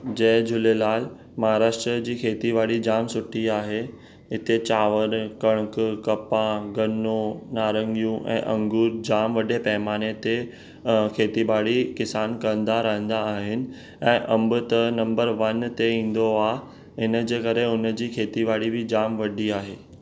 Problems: none marked